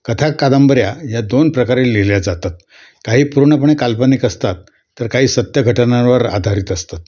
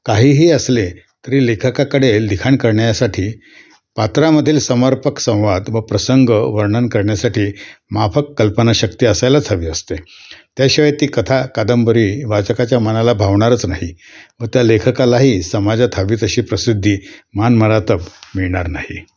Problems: constant background noise